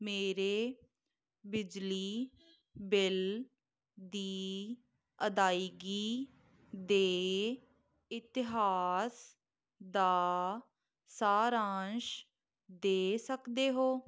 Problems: background sounds at intervals